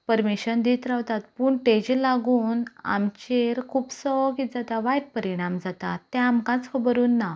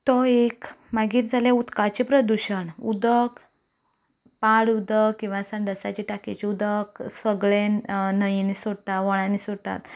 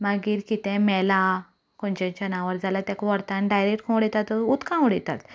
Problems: none marked